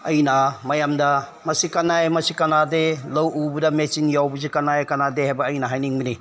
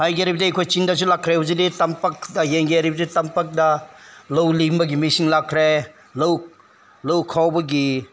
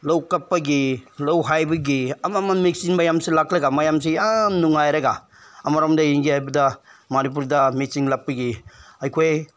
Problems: none marked